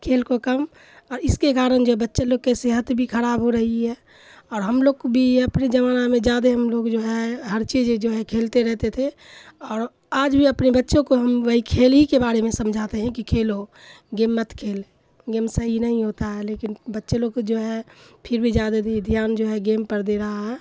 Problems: constant background noise, low volume